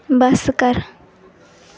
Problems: background sounds at intervals